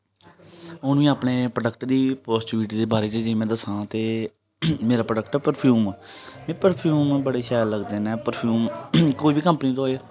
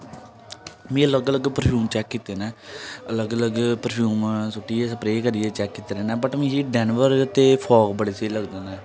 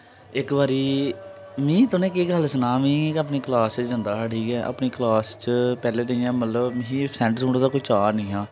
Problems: none marked